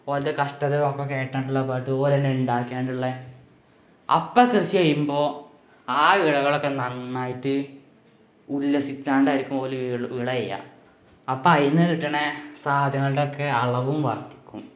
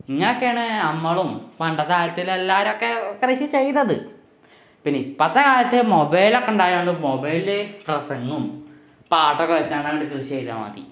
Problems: background sounds at intervals